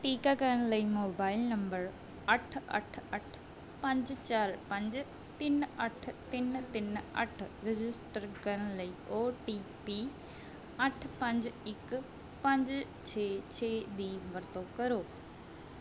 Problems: background sounds at intervals